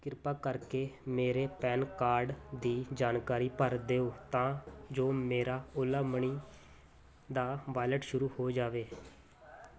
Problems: constant background noise